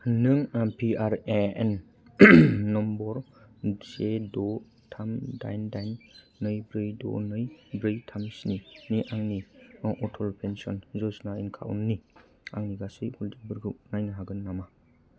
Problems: low volume